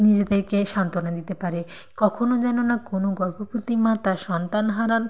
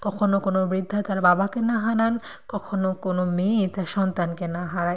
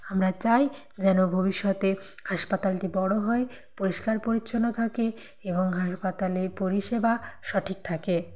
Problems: none marked